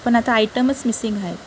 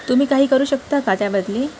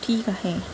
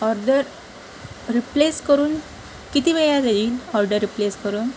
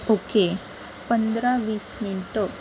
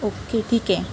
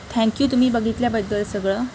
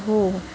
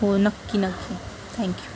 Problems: constant background noise, background conversations at intervals